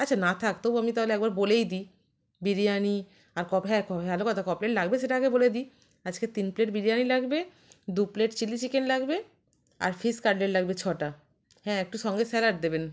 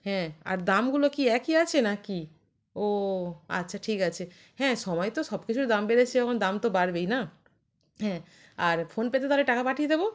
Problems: none marked